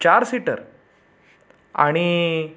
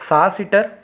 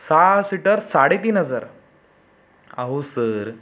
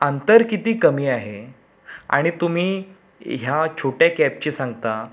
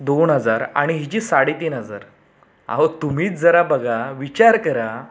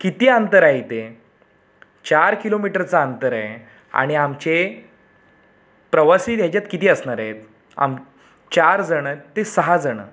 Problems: none marked